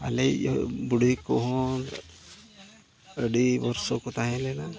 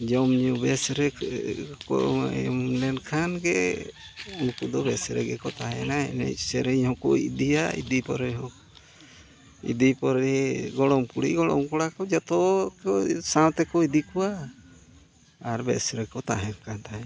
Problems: background sounds at intervals, continuous background conversations